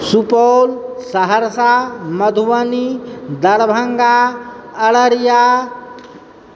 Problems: background sounds at intervals